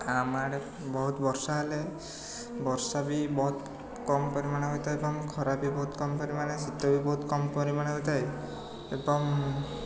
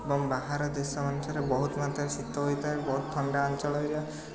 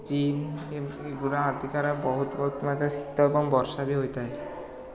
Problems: constant background noise, continuous background conversations